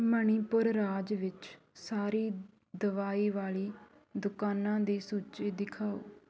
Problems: continuous background conversations